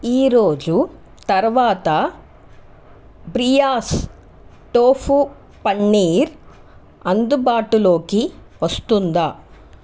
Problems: constant background noise